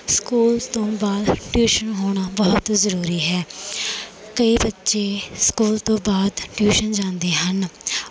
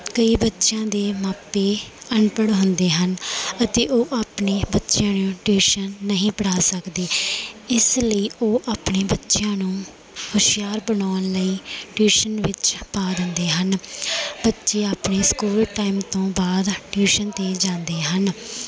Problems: none marked